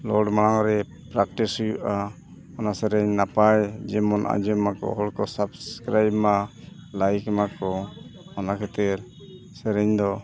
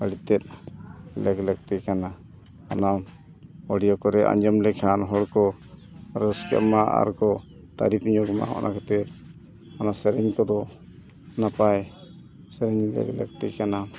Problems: background sounds at intervals, continuous background conversations